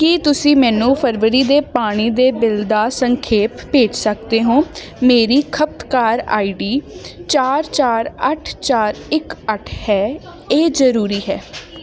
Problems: constant background noise